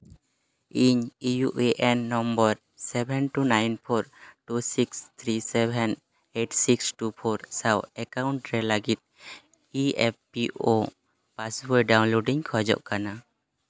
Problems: none marked